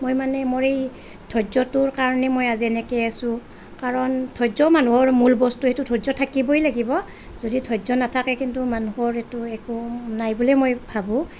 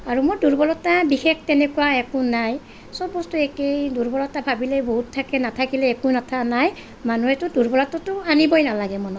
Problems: none marked